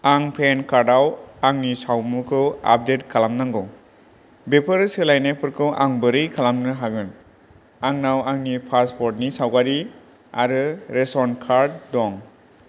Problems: none marked